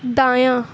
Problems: none marked